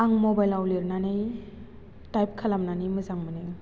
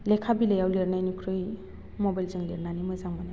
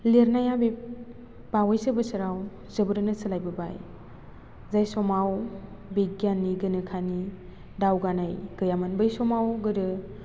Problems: constant background noise